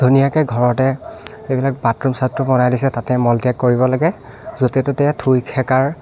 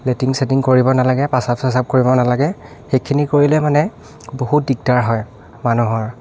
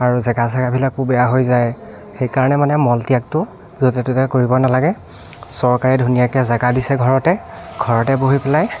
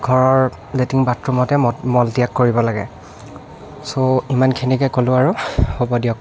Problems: background sounds at intervals, continuous background conversations